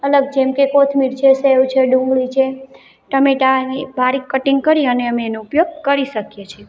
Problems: constant background noise